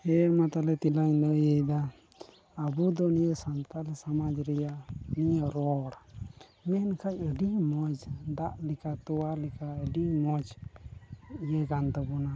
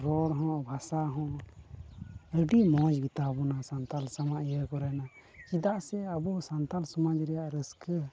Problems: constant background noise, low volume